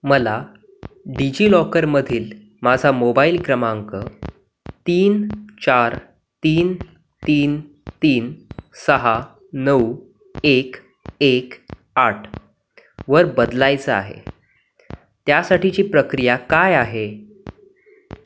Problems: none marked